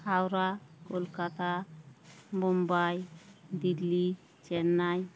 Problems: none marked